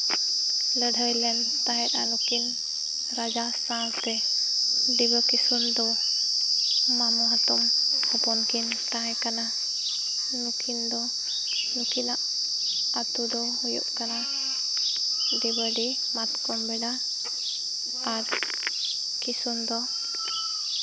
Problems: none marked